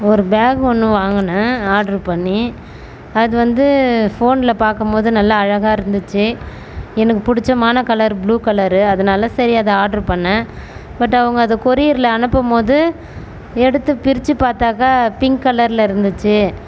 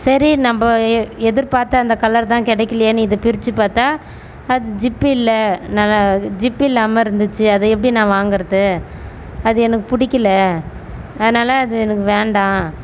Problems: constant background noise